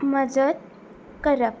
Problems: constant background noise